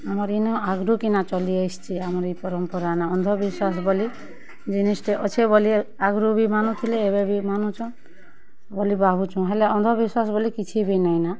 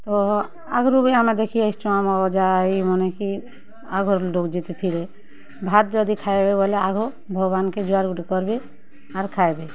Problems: constant background noise